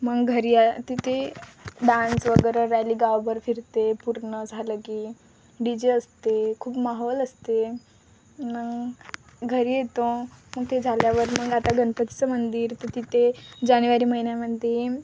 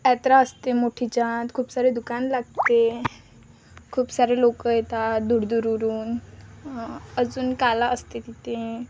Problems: constant background noise, continuous background conversations